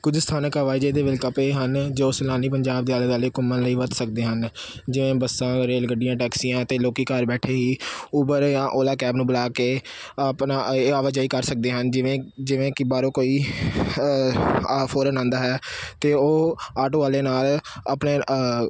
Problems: constant background noise